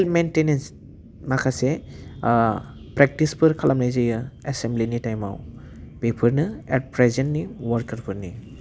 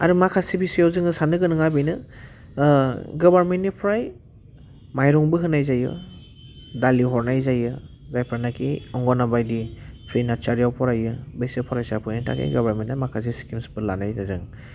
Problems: none marked